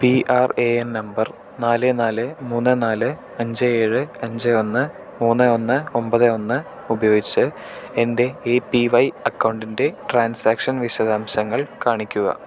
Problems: none marked